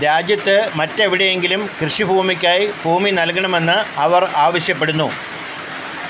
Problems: constant background noise